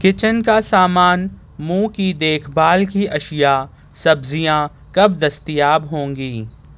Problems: none marked